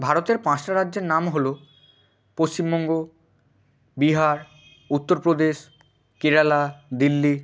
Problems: constant background noise